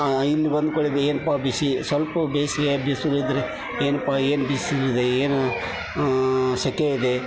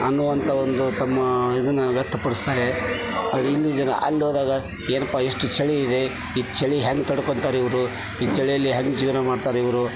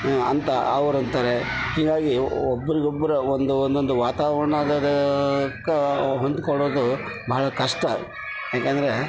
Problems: constant background noise